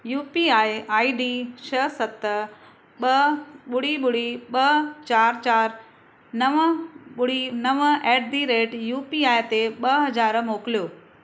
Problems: none marked